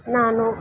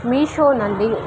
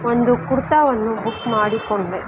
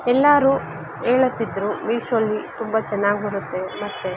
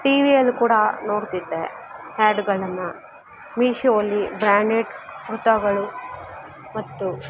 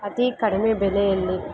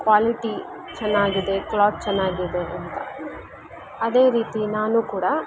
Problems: constant background noise